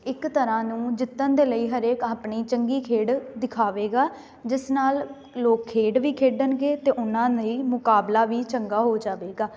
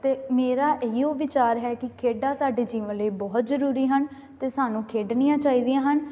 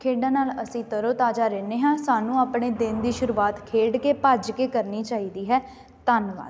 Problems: constant background noise